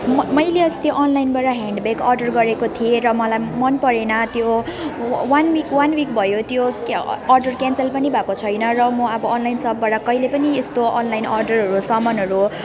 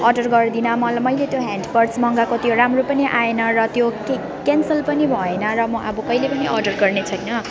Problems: constant background noise